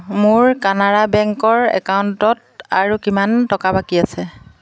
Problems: constant background noise